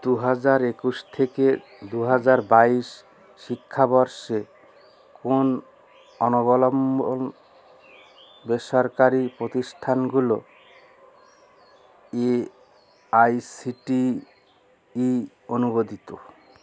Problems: background sounds at intervals